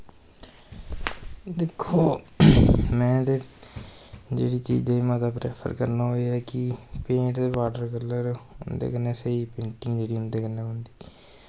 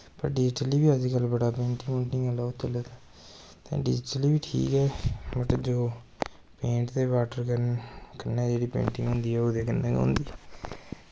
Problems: constant background noise